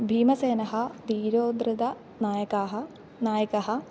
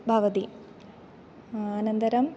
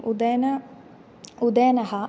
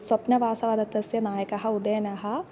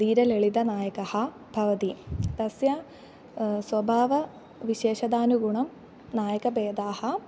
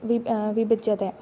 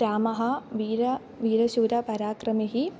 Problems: none marked